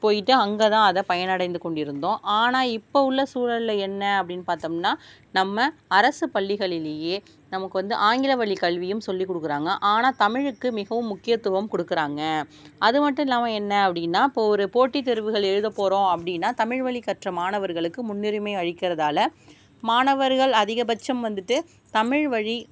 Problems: none marked